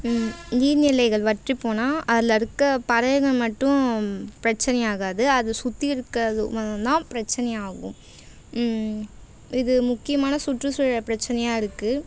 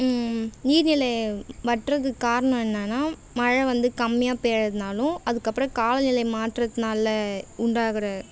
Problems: constant background noise